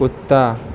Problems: background sounds at intervals